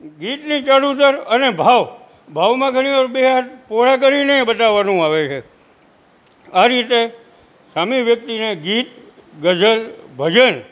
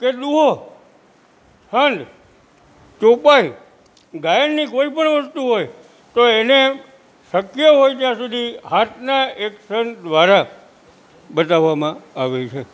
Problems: constant background noise